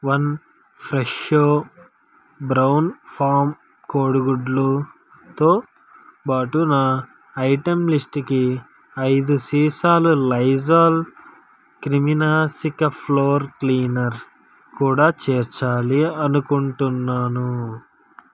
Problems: background sounds at intervals